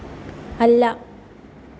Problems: none marked